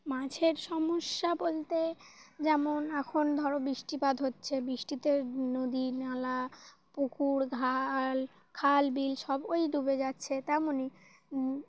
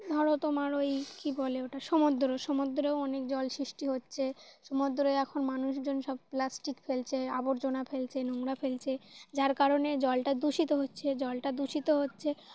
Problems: constant background noise